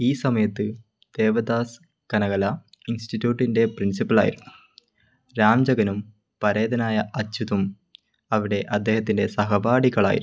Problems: none marked